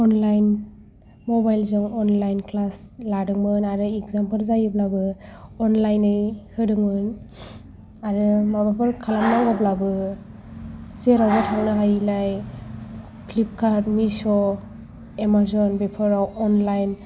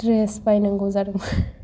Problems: background sounds at intervals